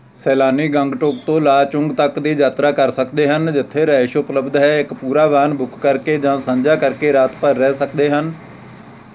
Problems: constant background noise